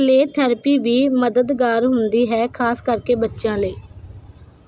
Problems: constant background noise